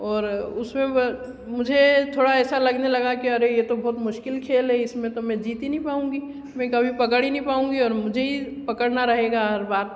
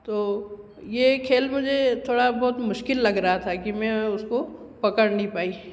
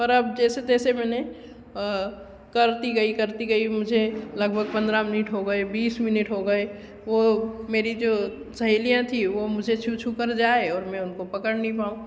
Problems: constant background noise